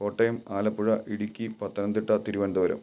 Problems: none marked